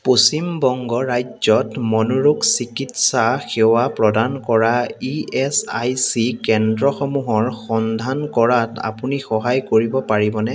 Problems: continuous background conversations